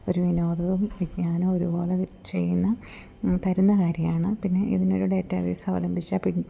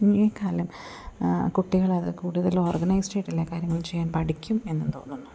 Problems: none marked